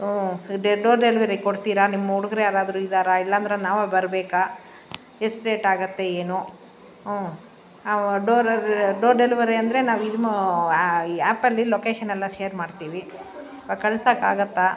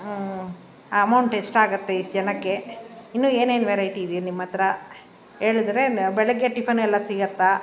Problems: background sounds at intervals